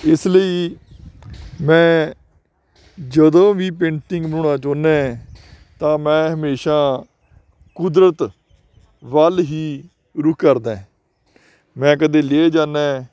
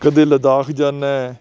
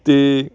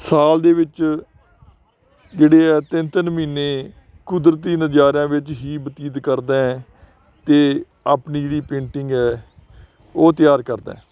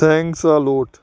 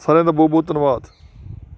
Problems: none marked